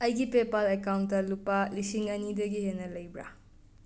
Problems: background sounds at intervals